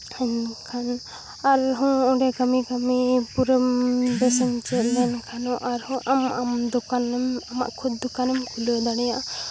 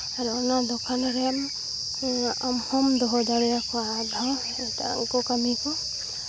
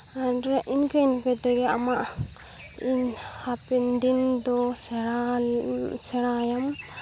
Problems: none marked